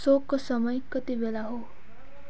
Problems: background sounds at intervals